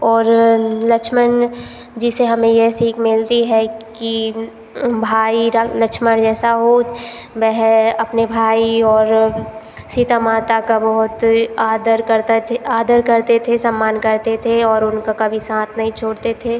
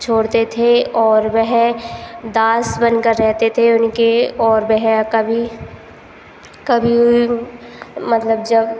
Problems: constant background noise